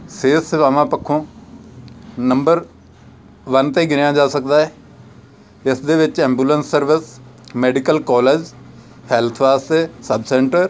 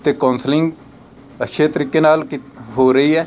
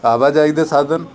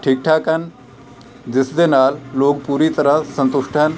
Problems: constant background noise, background conversations at intervals